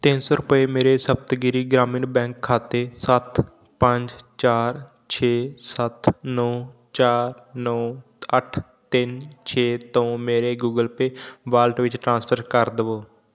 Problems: none marked